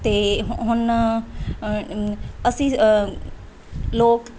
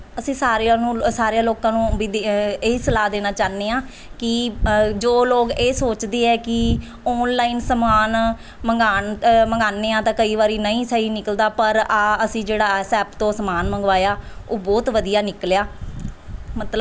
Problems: none marked